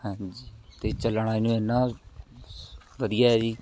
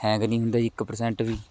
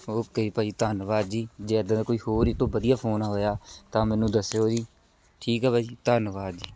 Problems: background conversations at intervals